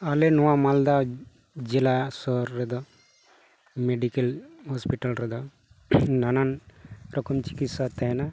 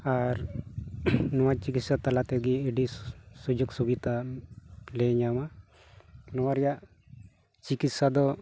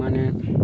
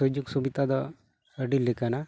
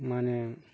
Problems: none marked